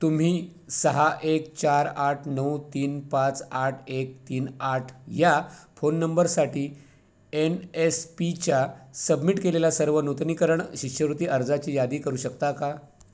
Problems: constant background noise